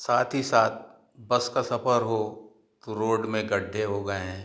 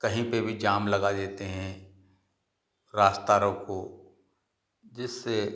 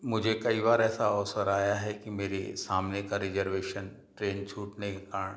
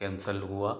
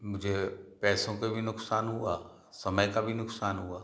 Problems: none marked